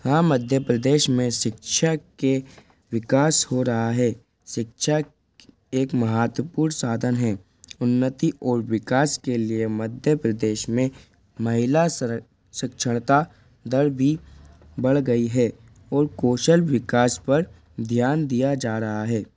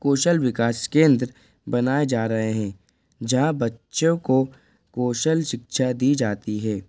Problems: constant background noise, background conversations at intervals